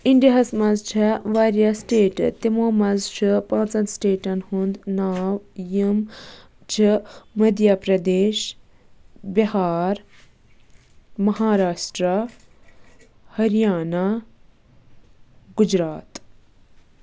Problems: background sounds at intervals